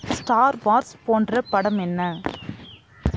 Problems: constant background noise